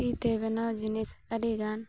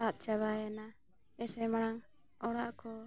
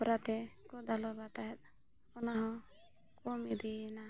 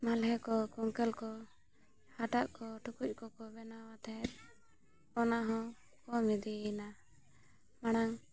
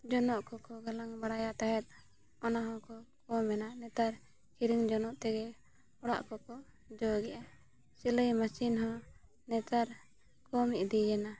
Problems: none marked